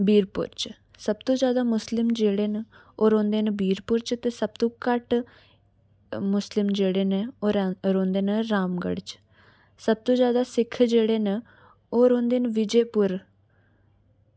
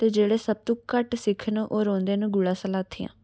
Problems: background sounds at intervals